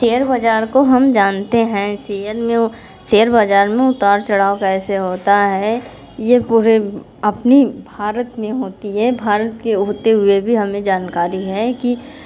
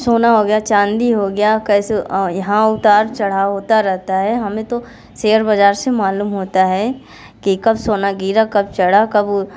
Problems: none marked